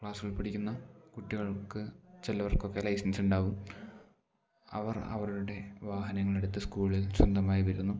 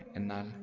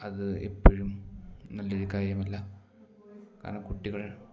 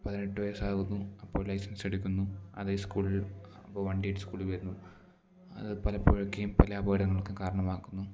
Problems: low volume